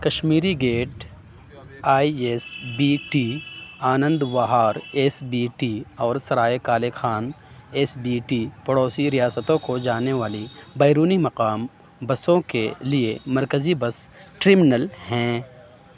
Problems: none marked